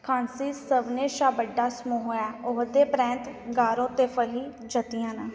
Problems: background sounds at intervals, echo